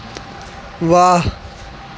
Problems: constant background noise